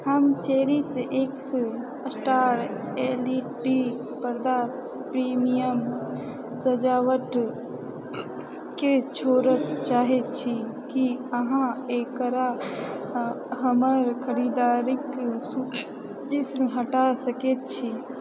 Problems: background sounds at intervals